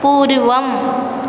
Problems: constant background noise